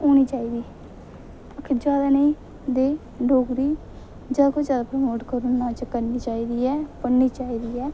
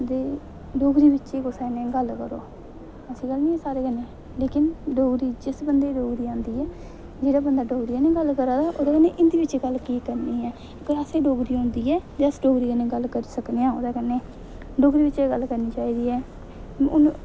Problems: none marked